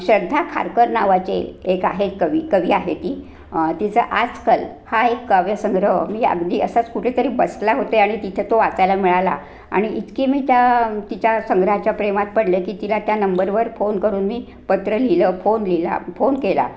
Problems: background sounds at intervals